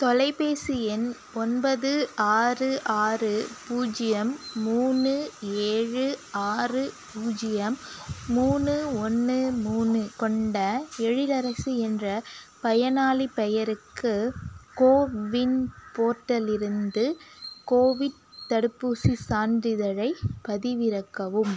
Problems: background sounds at intervals